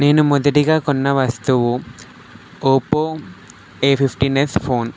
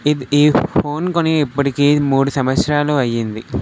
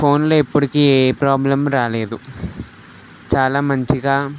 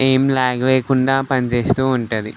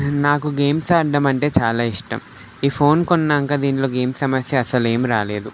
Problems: none marked